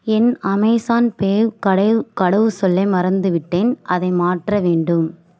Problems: none marked